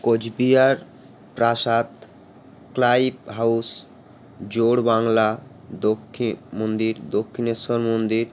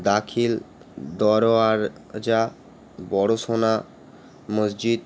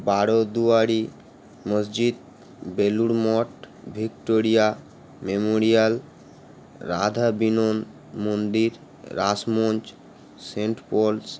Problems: constant background noise